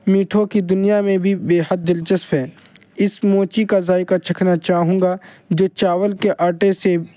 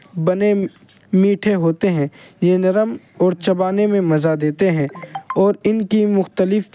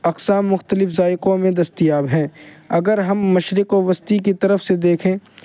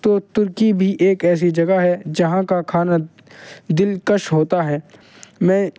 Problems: none marked